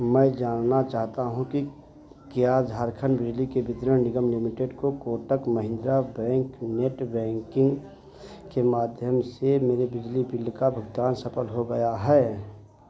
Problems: constant background noise